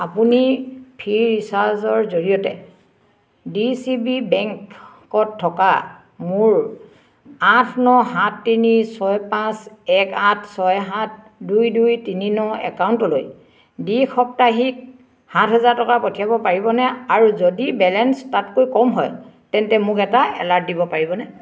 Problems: none marked